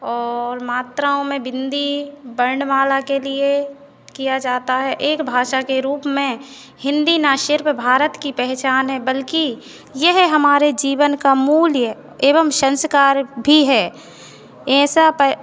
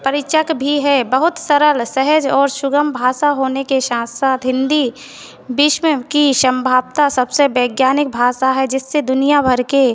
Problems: constant background noise